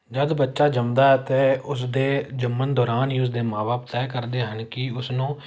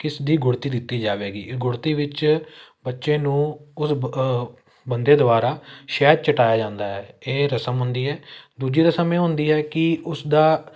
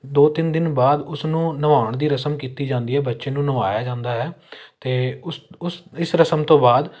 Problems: none marked